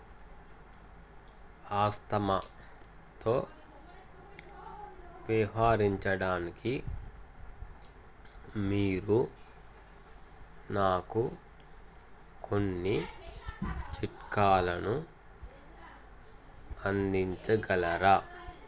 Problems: constant background noise, background conversations at intervals